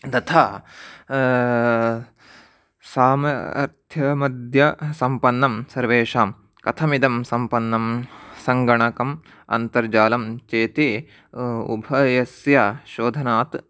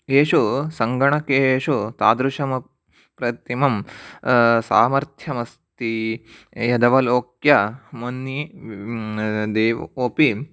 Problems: none marked